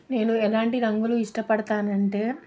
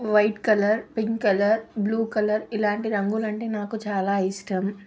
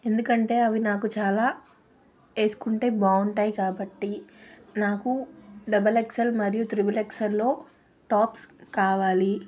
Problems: none marked